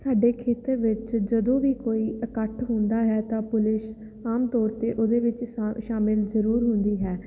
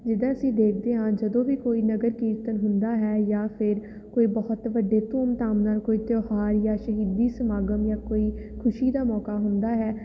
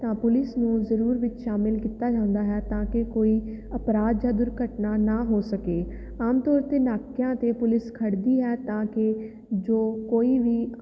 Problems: none marked